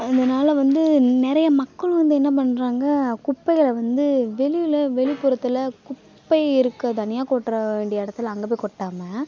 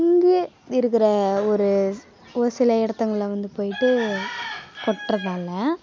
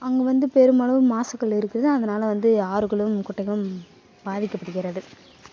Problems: constant background noise, continuous background conversations